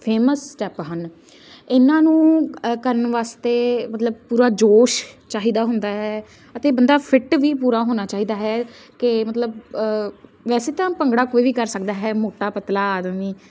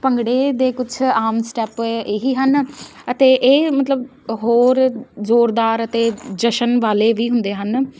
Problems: constant background noise